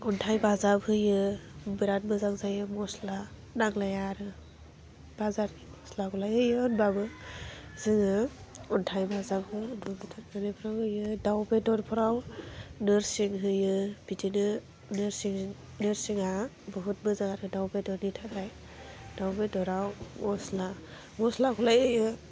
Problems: constant background noise